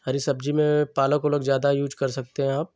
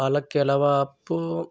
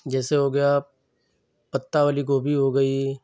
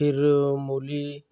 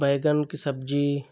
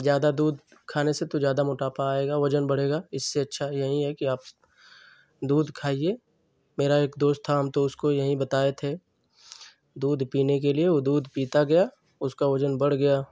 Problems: constant background noise